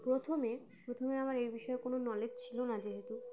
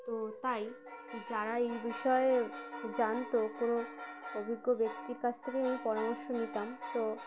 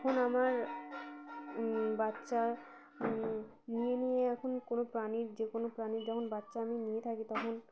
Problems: none marked